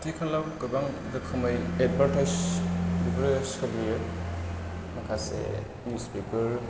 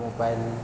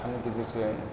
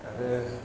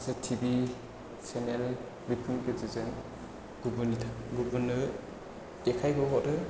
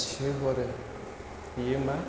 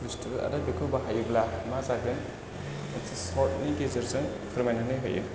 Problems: constant background noise